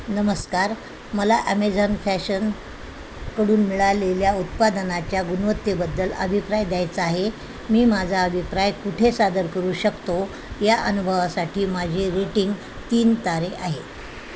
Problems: constant background noise